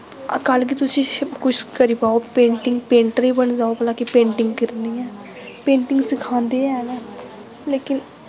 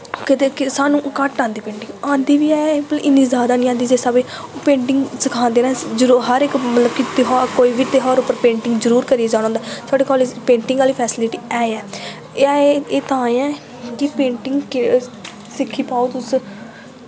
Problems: none marked